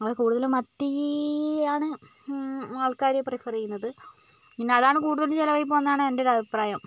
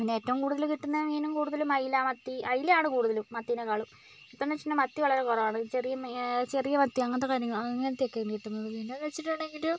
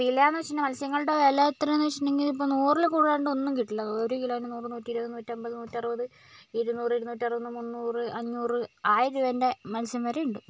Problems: constant background noise